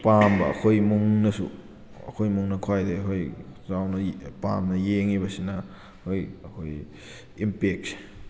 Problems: background sounds at intervals